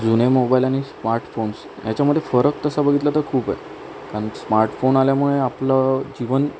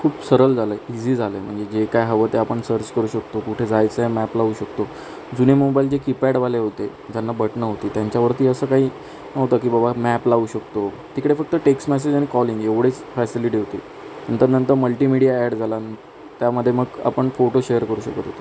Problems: constant background noise